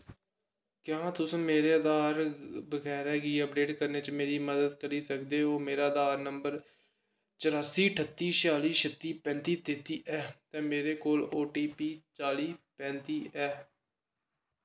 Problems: echo